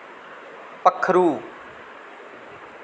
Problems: none marked